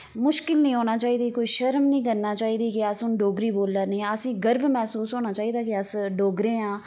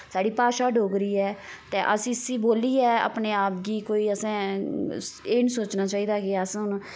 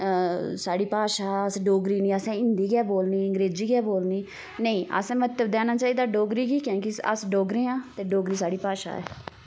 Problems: constant background noise